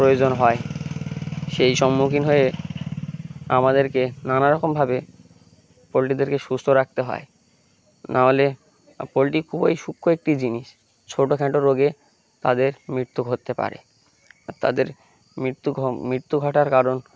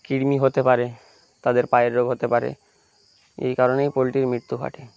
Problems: constant background noise, background conversations at intervals